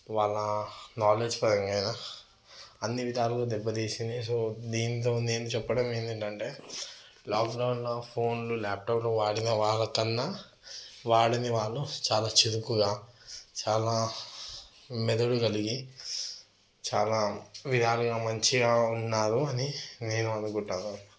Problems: background sounds at intervals